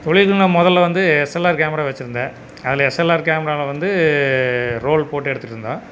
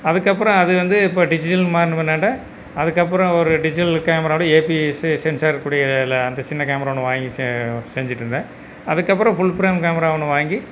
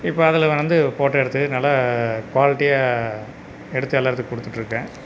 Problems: constant background noise